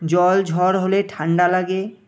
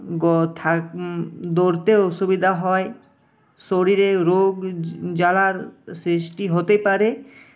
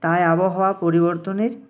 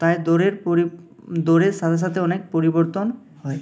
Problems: constant background noise